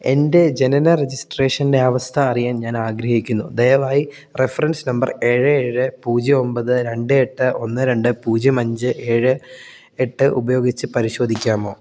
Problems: none marked